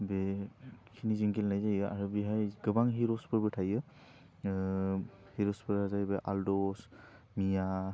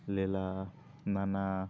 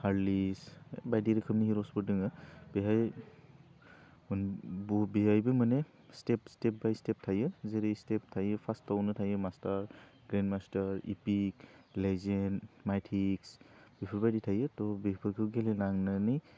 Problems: low volume